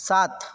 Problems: constant background noise